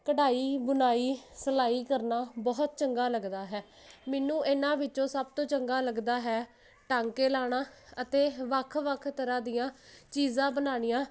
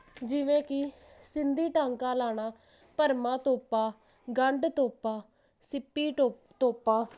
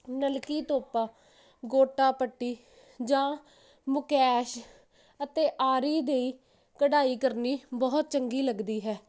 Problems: none marked